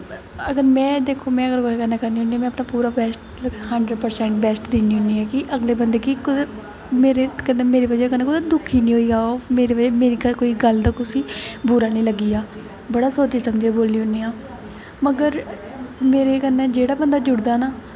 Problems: constant background noise